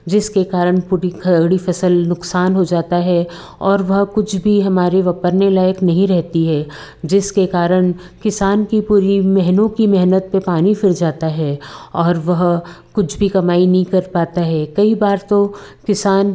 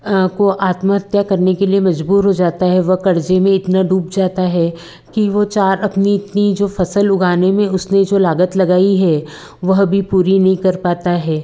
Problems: none marked